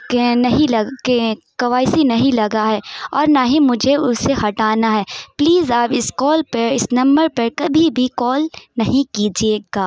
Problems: none marked